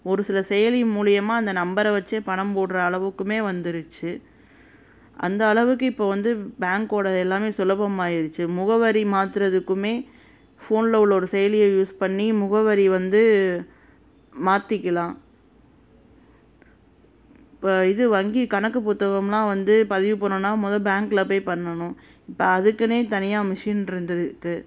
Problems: constant background noise